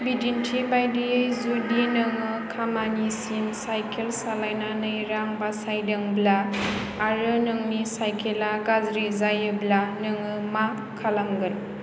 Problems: constant background noise